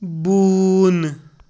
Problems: constant background noise